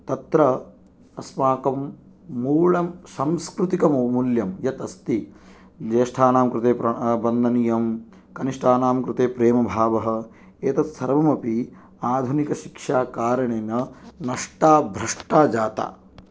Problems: none marked